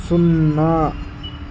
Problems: constant background noise